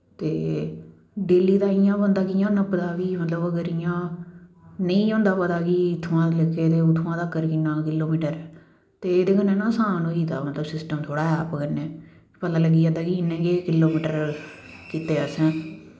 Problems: none marked